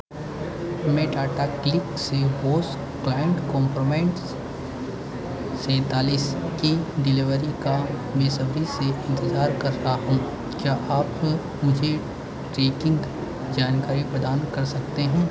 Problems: none marked